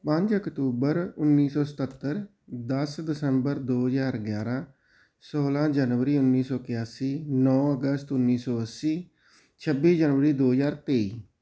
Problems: none marked